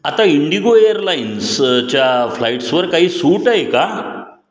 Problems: none marked